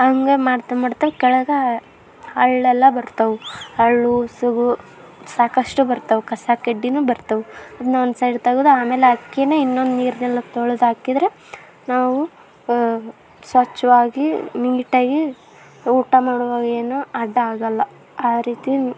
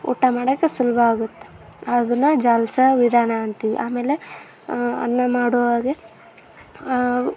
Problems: background sounds at intervals